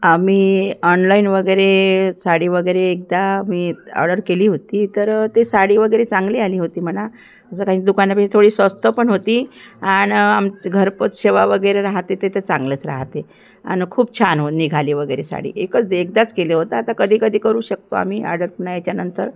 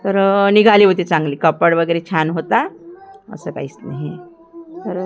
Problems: background sounds at intervals